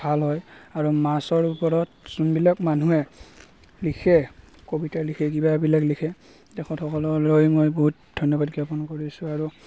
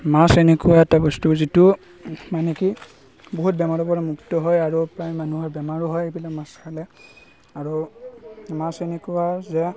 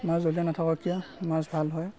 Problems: constant background noise